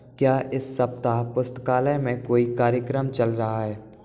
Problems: background sounds at intervals